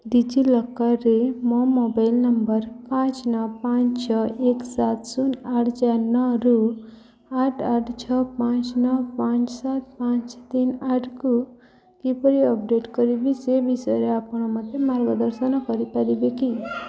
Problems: constant background noise